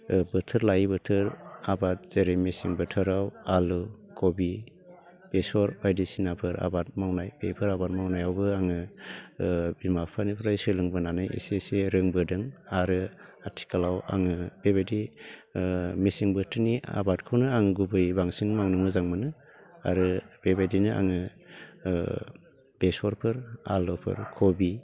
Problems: none marked